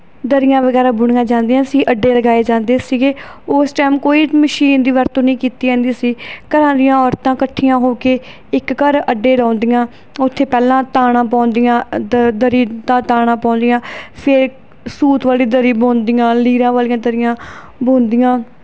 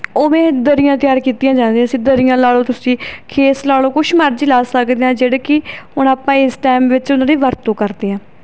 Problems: none marked